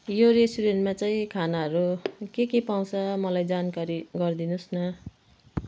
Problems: background sounds at intervals